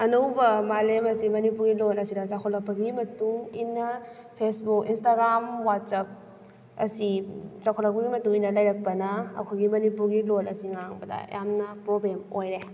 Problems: none marked